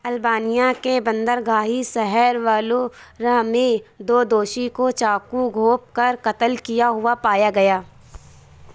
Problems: none marked